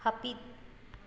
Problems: echo